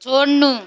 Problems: none marked